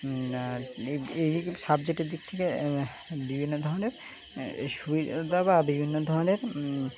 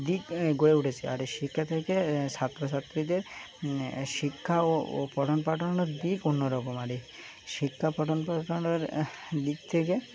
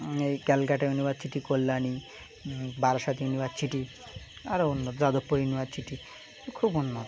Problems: constant background noise, continuous background conversations